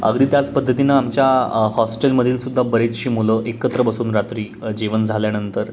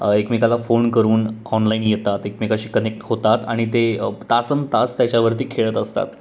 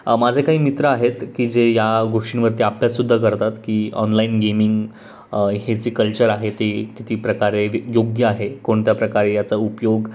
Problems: background sounds at intervals